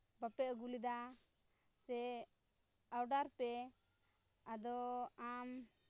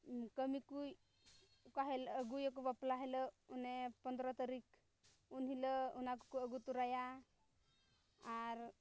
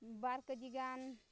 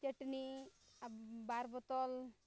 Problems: low volume